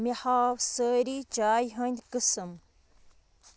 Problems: constant background noise